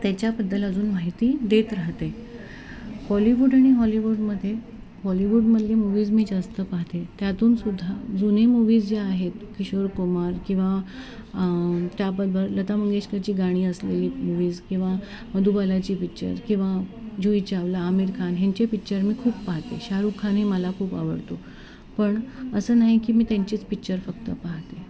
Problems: constant background noise